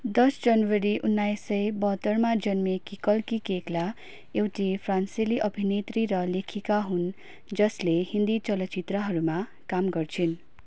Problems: none marked